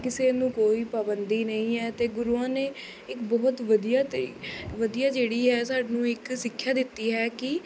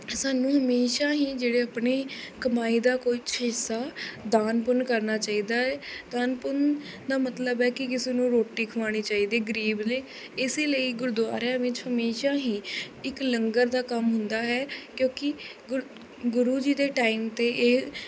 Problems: constant background noise